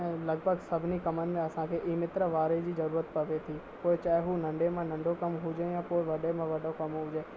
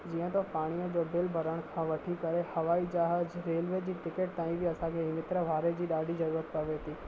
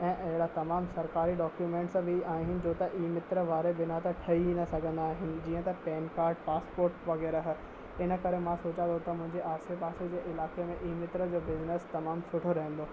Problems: constant background noise, low volume